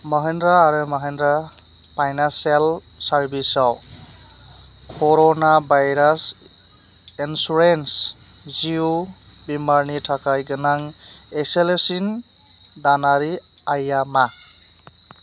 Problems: constant background noise